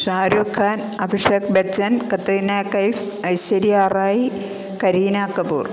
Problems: constant background noise